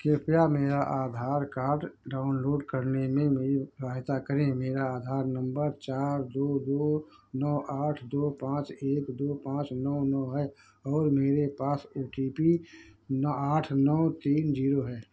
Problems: background sounds at intervals